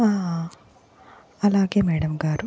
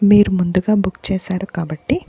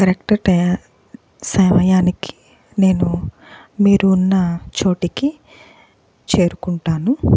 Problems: background sounds at intervals